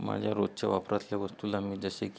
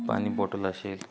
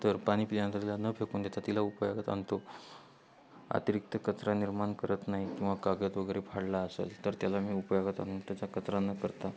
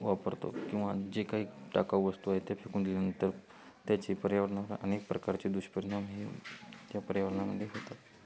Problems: none marked